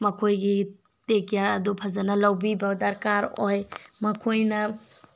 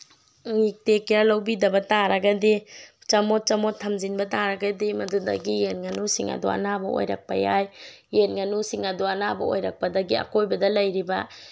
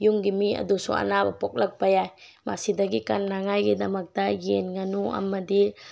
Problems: none marked